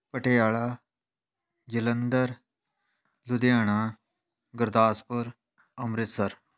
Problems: none marked